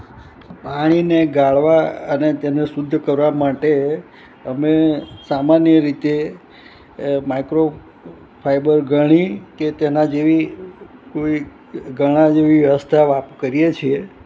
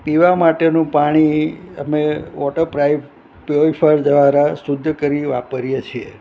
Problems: none marked